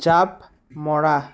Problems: constant background noise